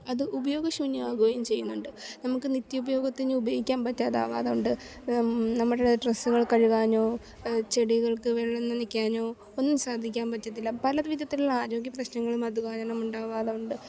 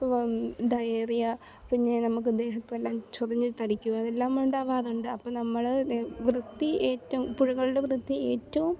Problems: none marked